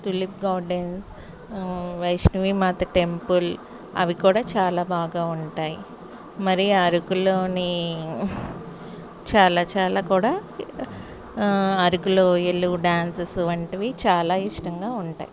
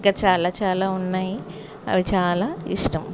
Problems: none marked